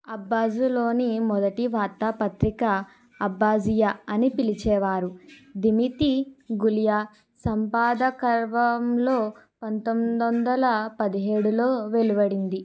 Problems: background conversations at intervals